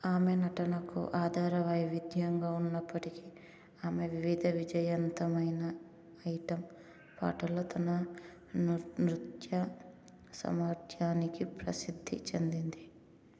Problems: low volume